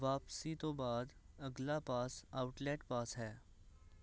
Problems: none marked